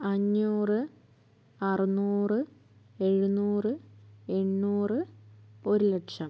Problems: low volume